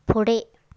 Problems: none marked